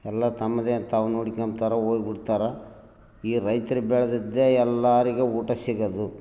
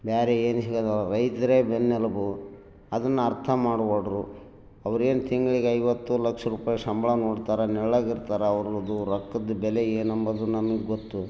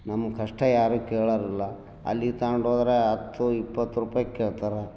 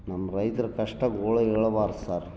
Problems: none marked